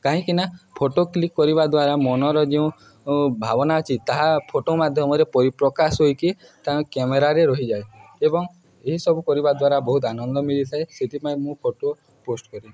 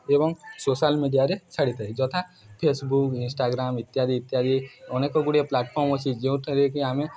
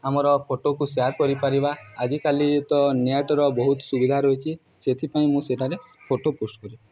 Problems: background sounds at intervals, continuous background conversations